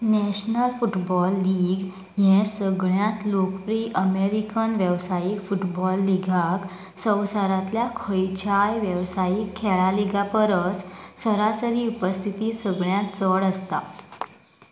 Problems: constant background noise